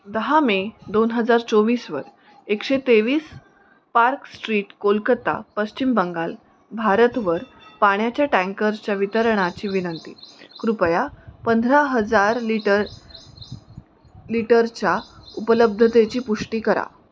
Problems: none marked